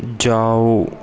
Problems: constant background noise, echo